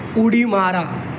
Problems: constant background noise